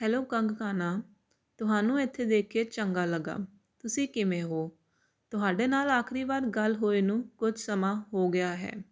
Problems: constant background noise